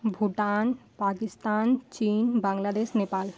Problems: constant background noise